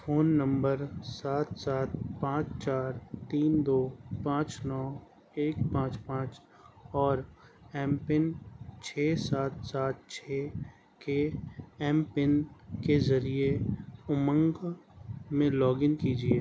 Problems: none marked